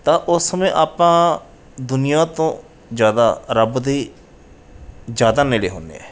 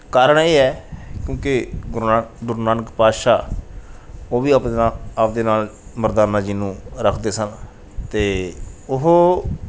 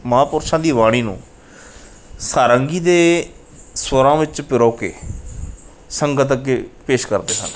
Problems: none marked